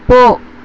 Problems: constant background noise